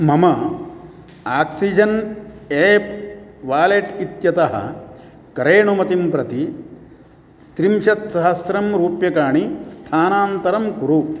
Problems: none marked